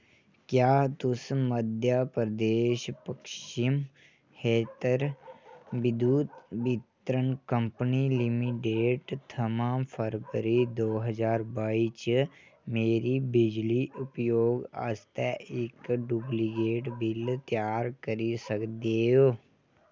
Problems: none marked